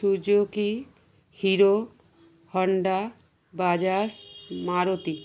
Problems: constant background noise